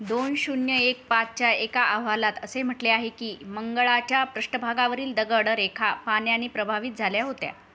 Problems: background sounds at intervals